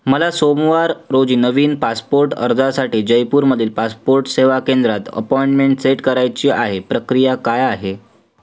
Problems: none marked